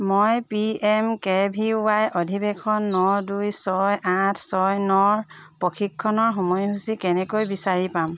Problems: background sounds at intervals